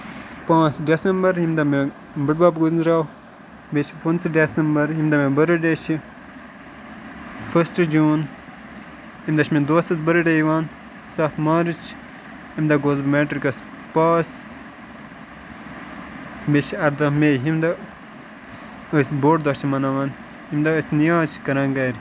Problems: constant background noise